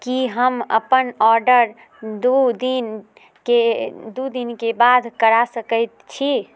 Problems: none marked